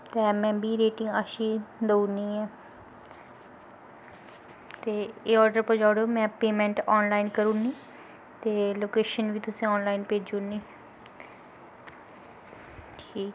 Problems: background sounds at intervals